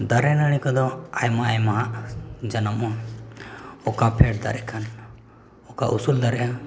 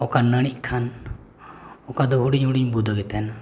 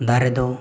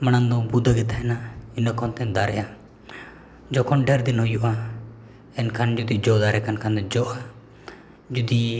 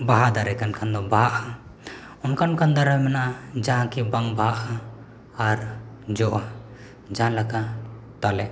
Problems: background sounds at intervals, echo